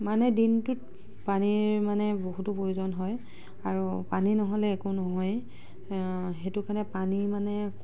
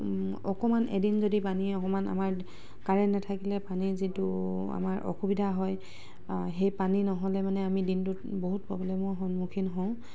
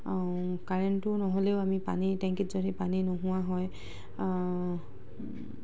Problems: background sounds at intervals, background conversations at intervals